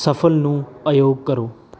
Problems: none marked